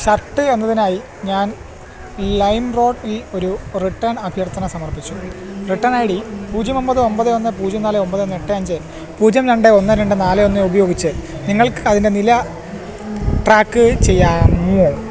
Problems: constant background noise